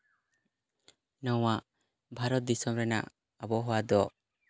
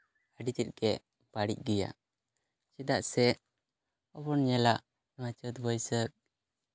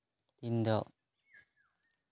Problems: background sounds at intervals